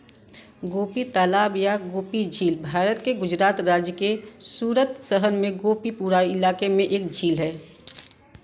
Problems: constant background noise